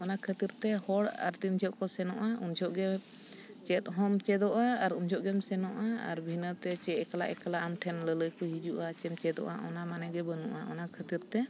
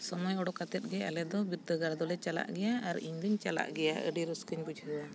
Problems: none marked